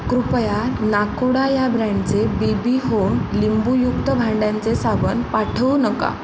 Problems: constant background noise